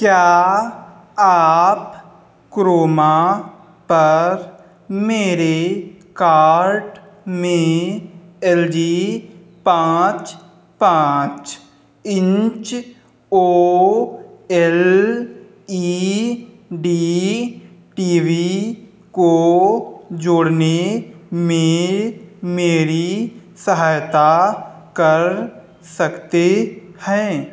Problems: none marked